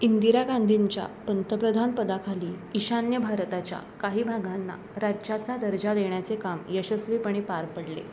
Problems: none marked